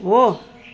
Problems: constant background noise